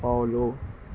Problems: none marked